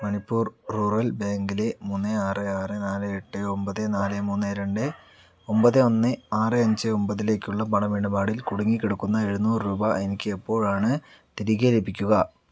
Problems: none marked